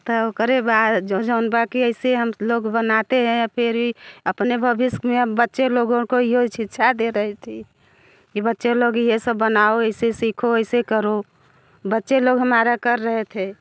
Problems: none marked